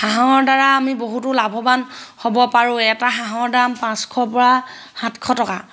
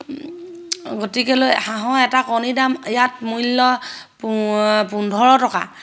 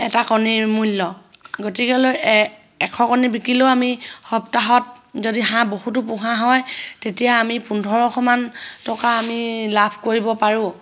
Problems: none marked